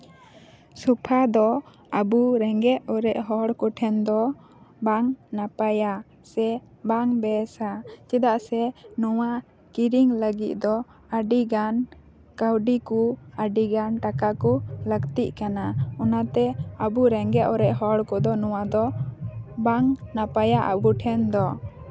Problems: constant background noise